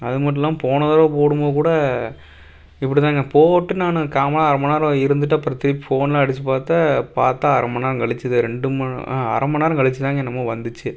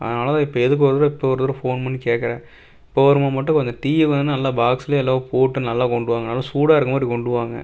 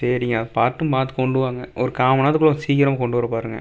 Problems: none marked